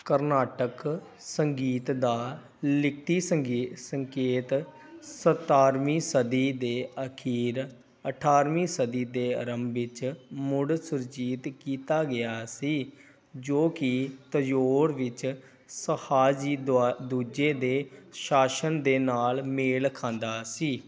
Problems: background sounds at intervals